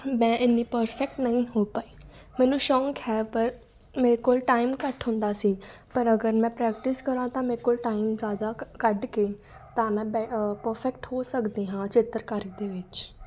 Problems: constant background noise